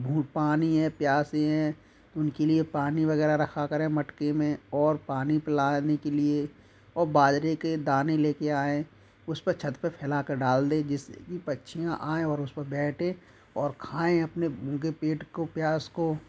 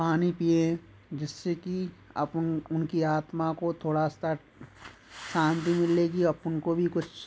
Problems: none marked